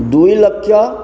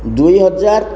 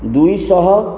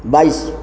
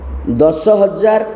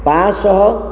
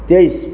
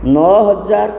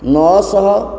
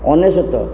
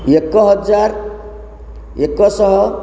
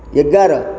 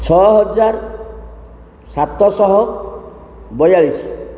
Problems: constant background noise